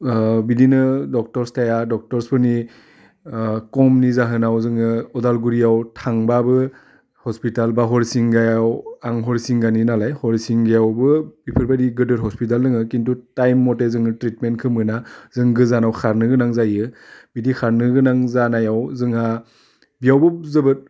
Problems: constant background noise